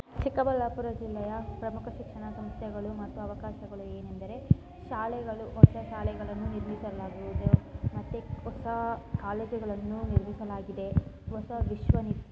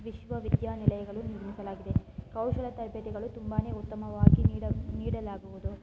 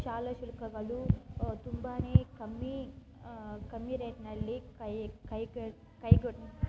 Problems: constant background noise